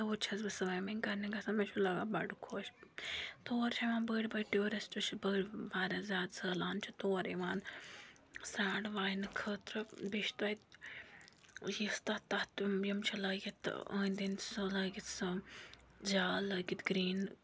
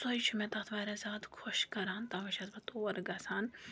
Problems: none marked